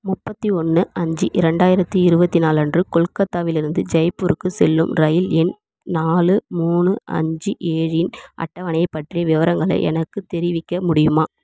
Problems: none marked